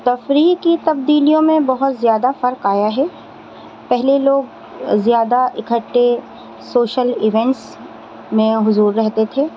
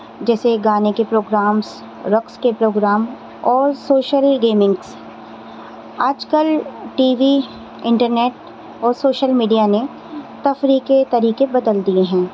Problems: constant background noise